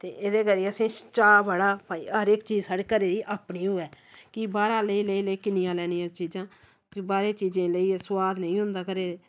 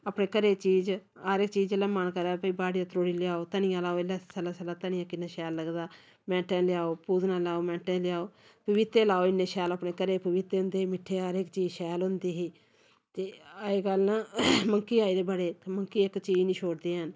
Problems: none marked